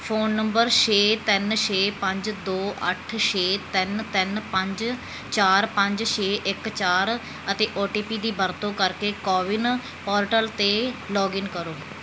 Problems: background sounds at intervals